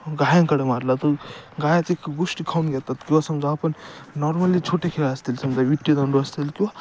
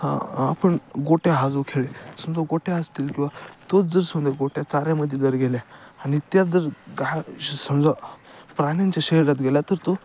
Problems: none marked